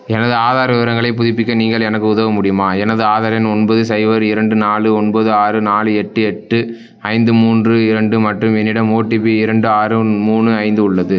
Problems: none marked